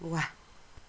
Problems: none marked